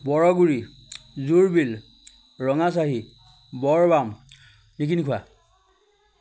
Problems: none marked